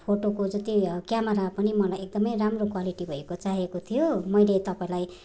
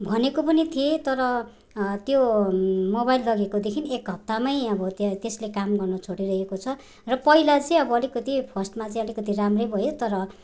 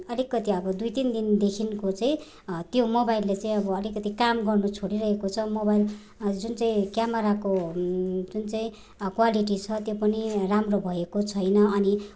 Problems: none marked